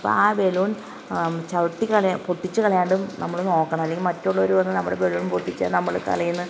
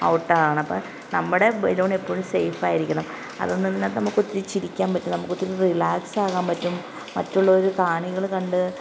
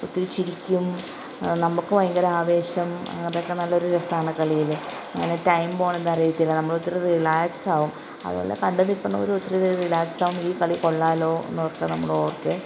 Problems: constant background noise